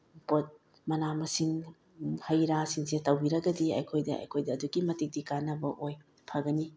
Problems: none marked